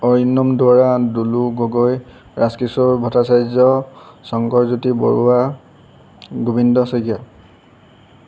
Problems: background sounds at intervals